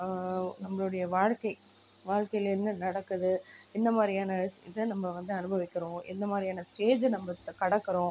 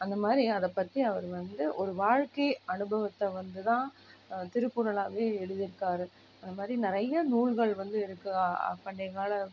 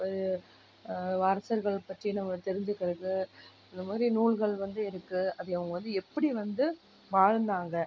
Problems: low volume